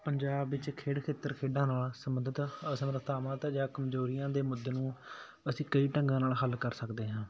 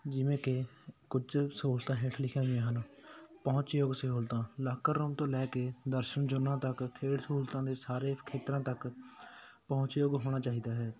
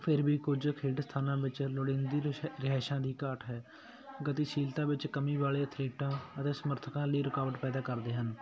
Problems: none marked